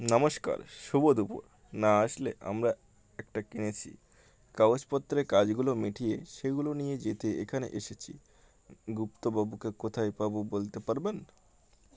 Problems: none marked